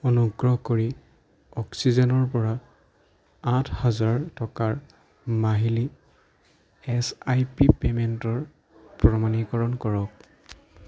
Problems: background conversations at intervals